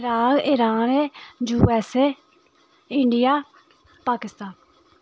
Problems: constant background noise